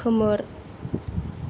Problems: none marked